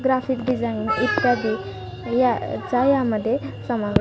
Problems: none marked